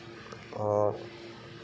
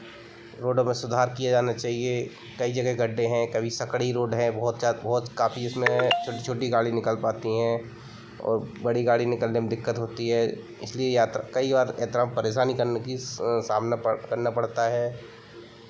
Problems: none marked